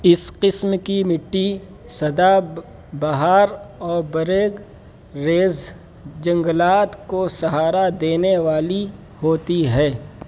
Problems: constant background noise